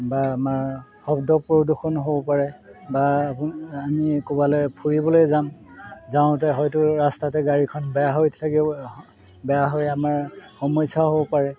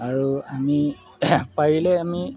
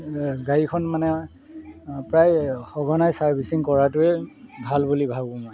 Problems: background sounds at intervals